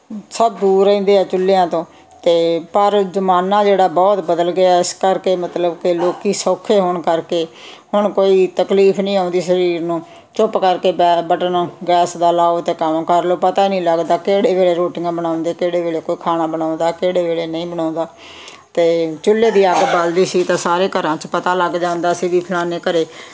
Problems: none marked